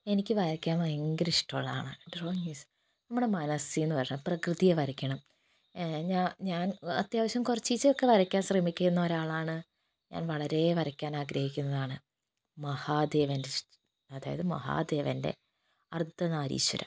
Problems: background sounds at intervals, low volume